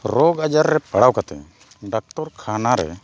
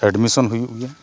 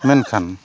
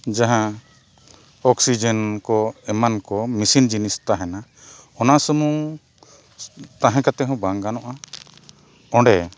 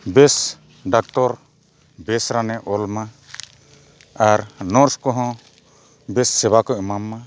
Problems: none marked